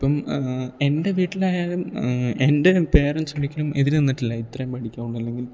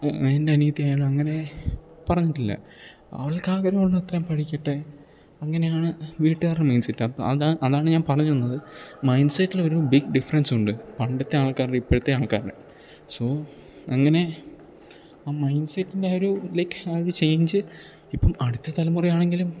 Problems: none marked